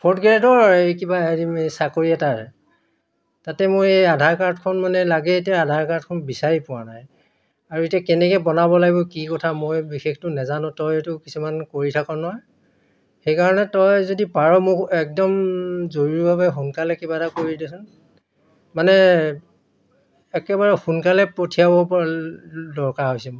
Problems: none marked